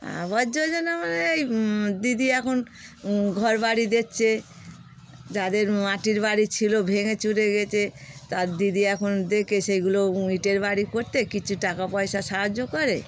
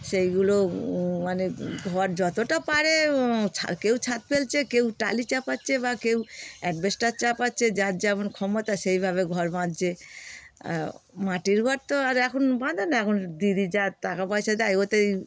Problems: constant background noise